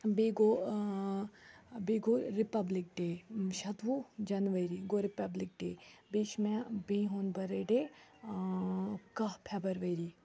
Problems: background sounds at intervals, background conversations at intervals